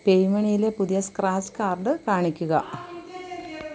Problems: constant background noise, background conversations at intervals